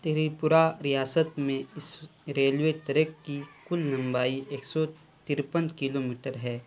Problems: constant background noise